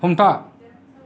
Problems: none marked